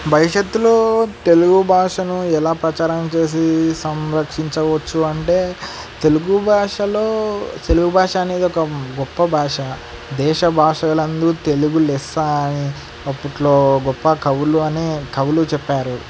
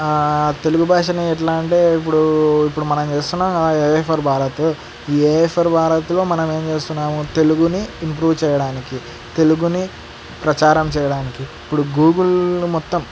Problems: none marked